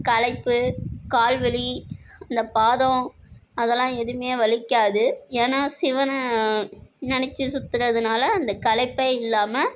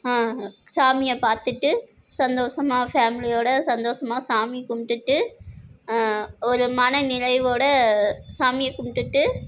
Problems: none marked